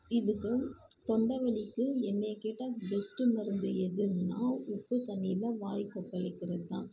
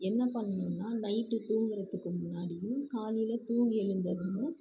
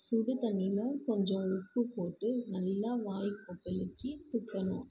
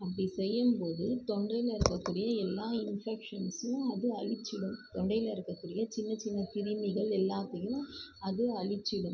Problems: low volume